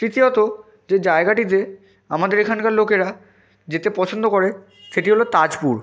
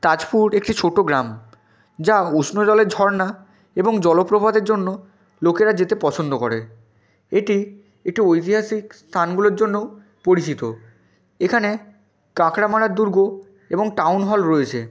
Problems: constant background noise